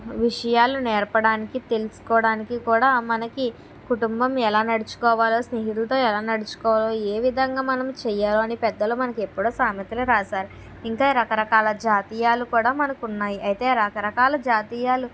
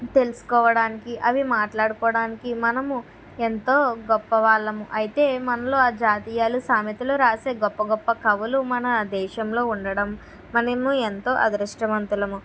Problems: none marked